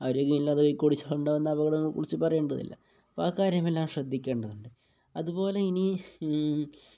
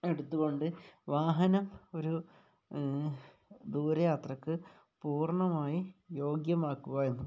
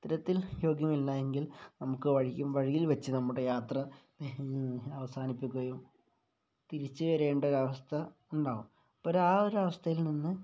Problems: low volume